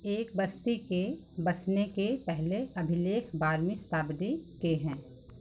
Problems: none marked